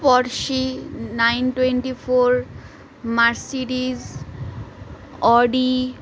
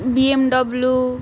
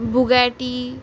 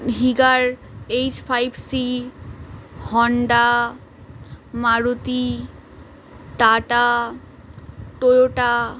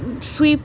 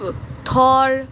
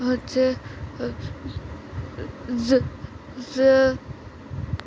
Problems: background sounds at intervals, continuous background conversations